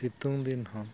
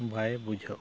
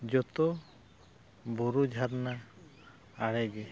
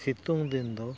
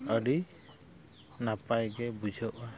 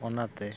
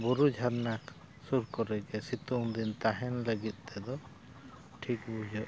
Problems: constant background noise, background conversations at intervals